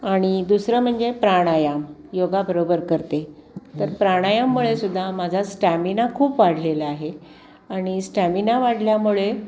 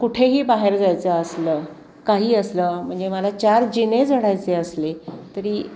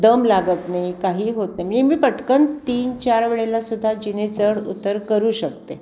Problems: constant background noise, background conversations at intervals